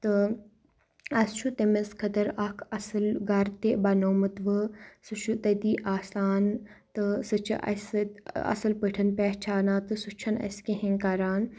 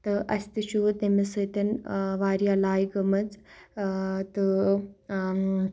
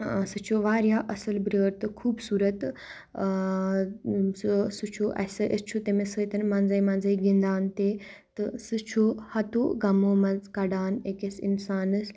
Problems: none marked